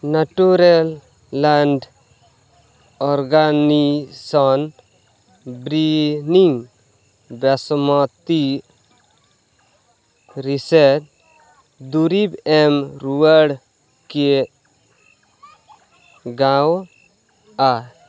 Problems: constant background noise, background conversations at intervals